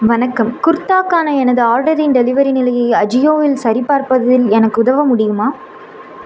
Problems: constant background noise